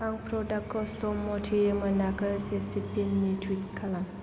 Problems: low volume